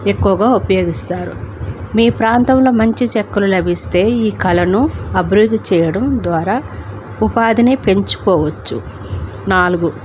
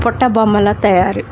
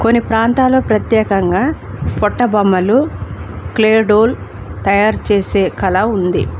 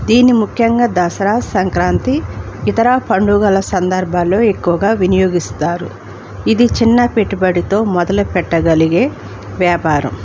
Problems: constant background noise